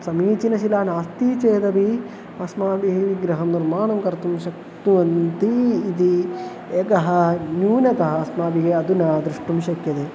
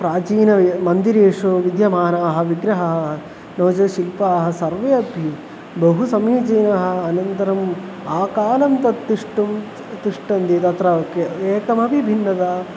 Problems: constant background noise